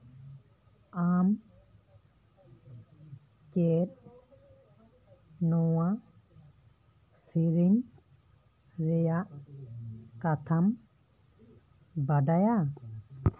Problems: background conversations at intervals